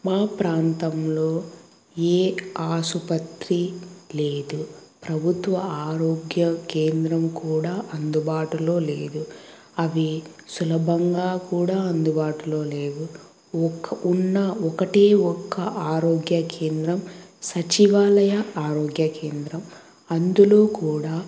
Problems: background sounds at intervals